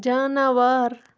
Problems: background sounds at intervals